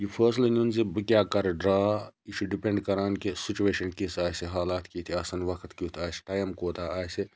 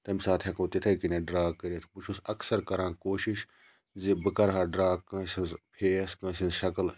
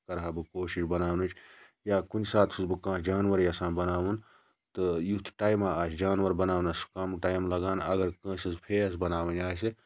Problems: none marked